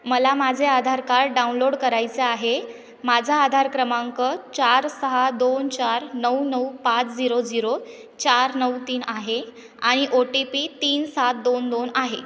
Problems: continuous background conversations, echo